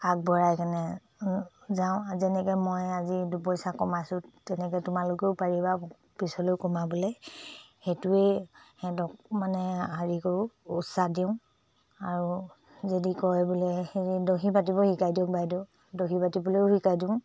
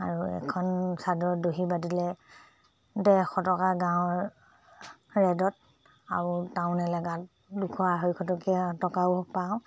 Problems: low volume